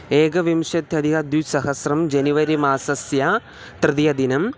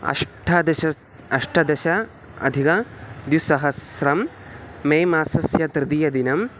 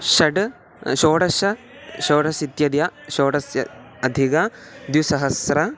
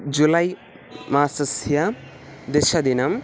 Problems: constant background noise